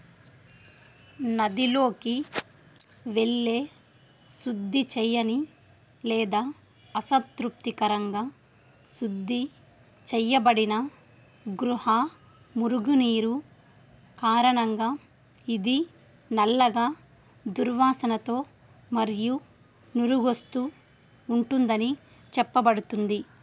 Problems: none marked